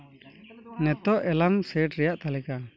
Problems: constant background noise